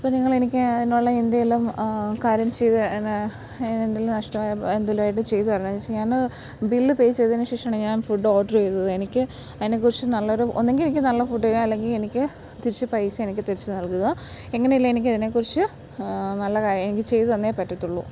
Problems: none marked